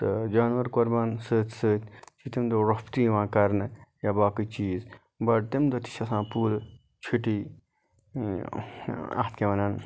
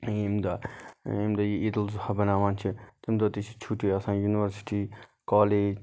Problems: none marked